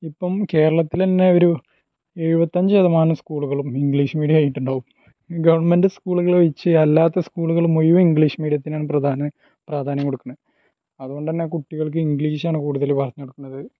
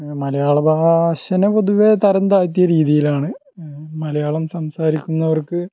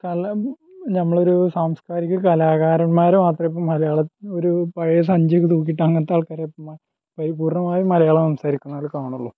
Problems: low volume